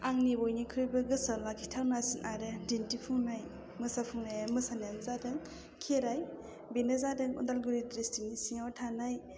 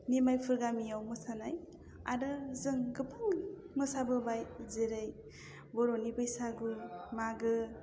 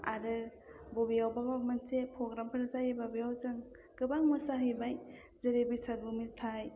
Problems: low volume